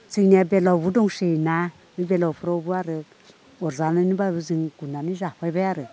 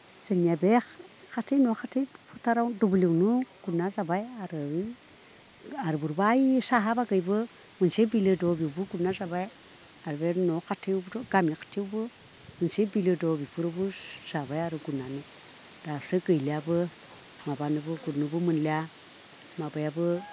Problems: background conversations at intervals